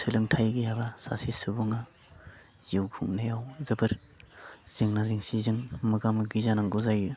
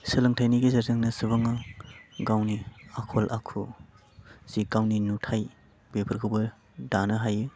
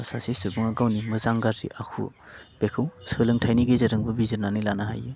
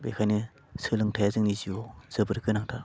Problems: constant background noise